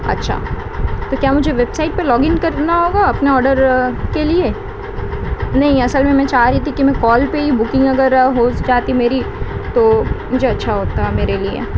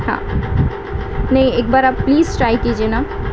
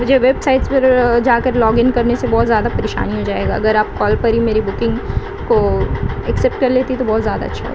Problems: constant background noise